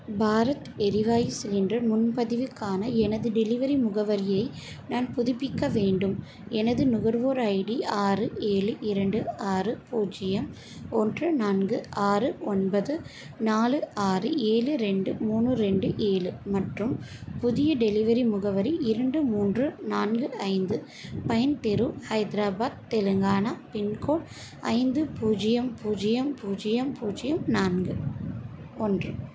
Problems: constant background noise